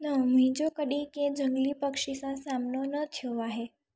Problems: none marked